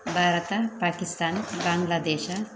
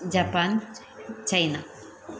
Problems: background sounds at intervals